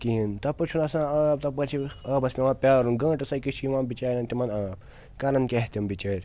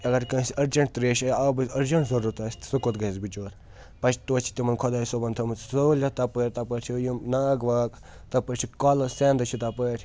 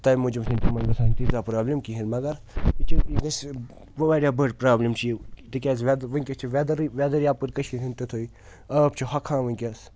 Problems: constant background noise